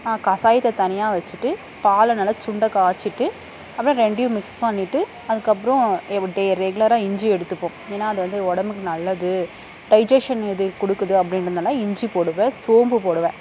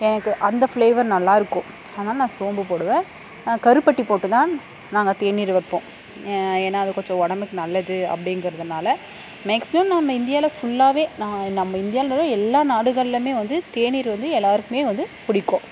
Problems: constant background noise